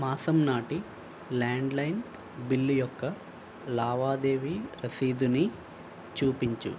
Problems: constant background noise